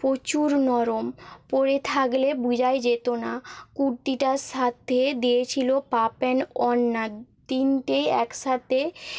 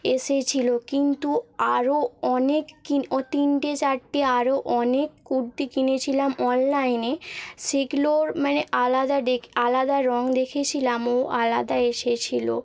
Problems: background sounds at intervals